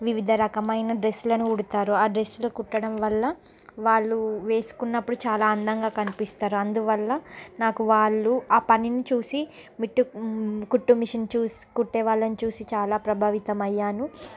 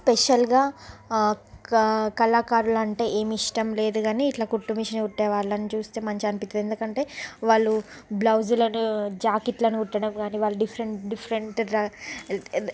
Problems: background sounds at intervals, background conversations at intervals